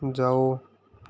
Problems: constant background noise